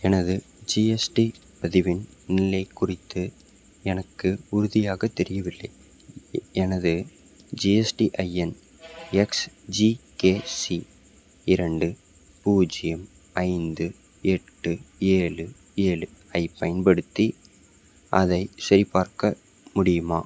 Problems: none marked